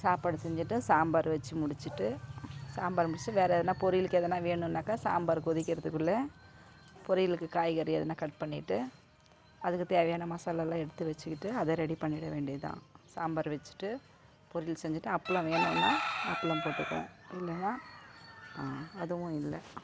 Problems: constant background noise